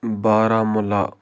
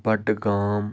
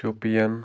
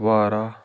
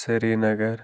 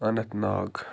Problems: background sounds at intervals